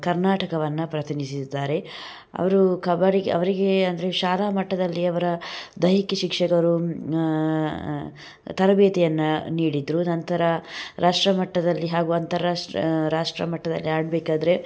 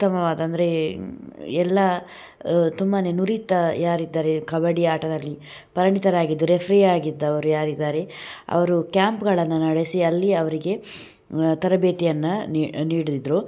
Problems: none marked